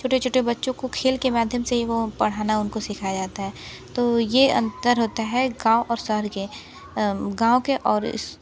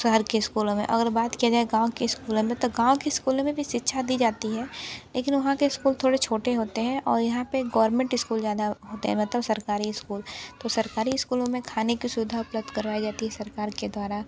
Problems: constant background noise, continuous background conversations